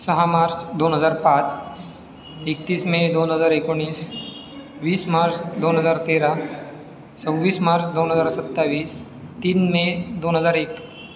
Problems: none marked